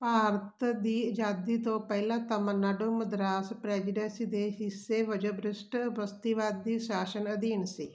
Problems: constant background noise